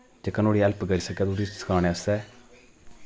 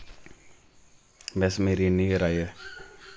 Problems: constant background noise